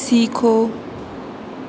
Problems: none marked